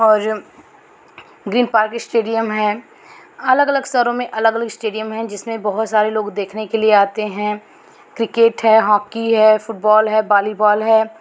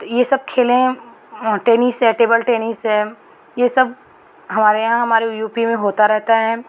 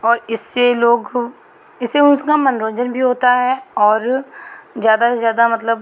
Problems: none marked